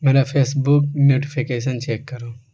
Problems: constant background noise